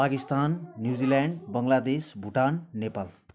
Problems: background conversations at intervals